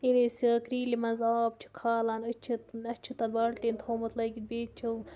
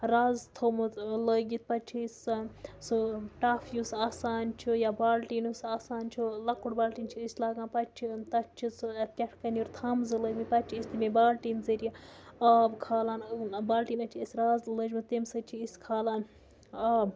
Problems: background sounds at intervals